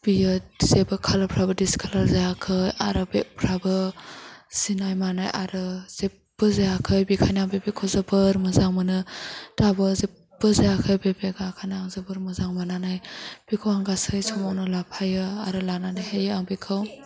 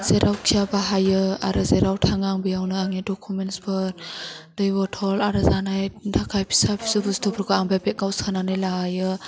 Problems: low volume